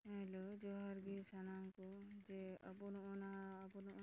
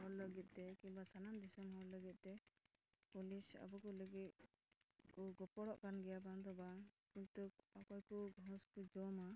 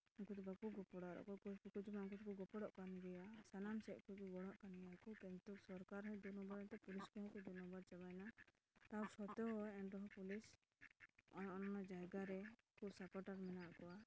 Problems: constant background noise, low volume